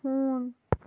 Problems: background sounds at intervals, low volume